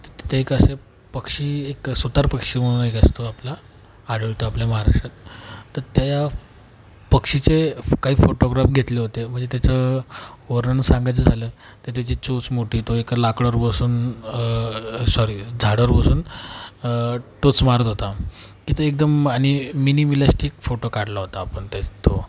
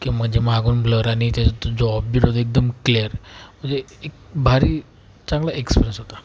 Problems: constant background noise